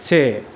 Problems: constant background noise